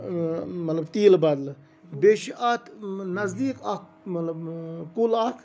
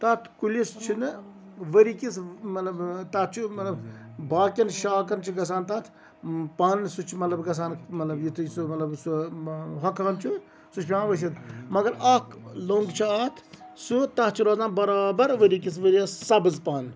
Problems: none marked